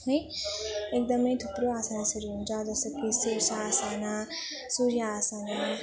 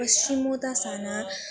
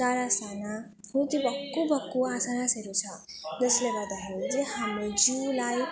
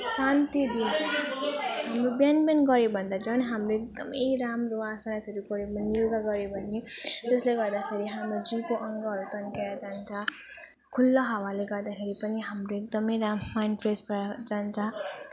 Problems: continuous background conversations